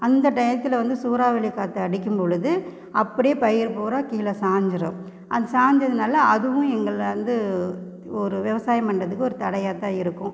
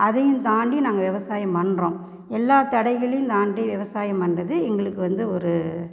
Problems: background sounds at intervals